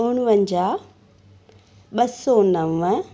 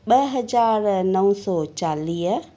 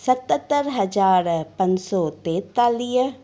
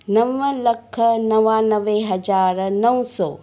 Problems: none marked